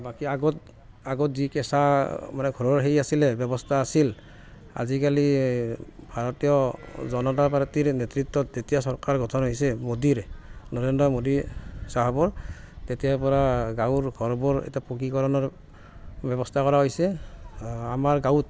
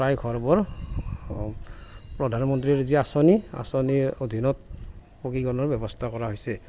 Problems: constant background noise